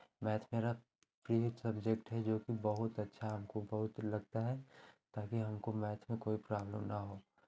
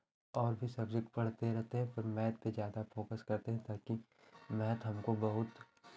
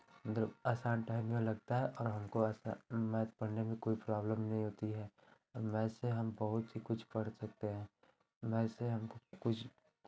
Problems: constant background noise, background conversations at intervals